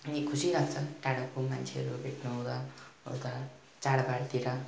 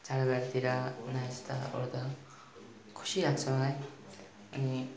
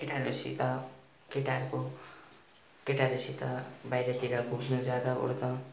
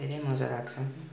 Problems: continuous background conversations